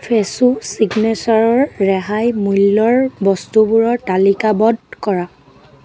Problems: continuous background conversations